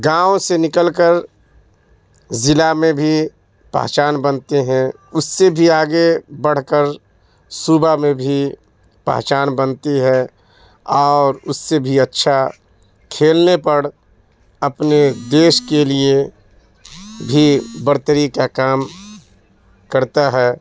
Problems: constant background noise